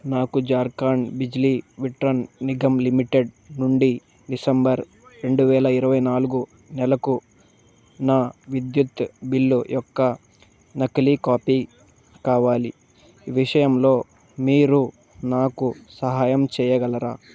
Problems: none marked